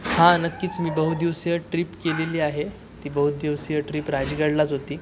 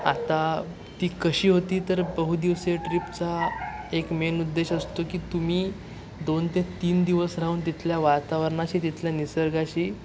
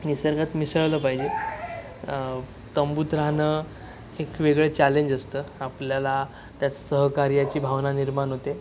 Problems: constant background noise